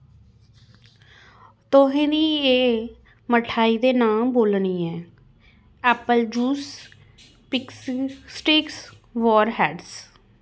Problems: background sounds at intervals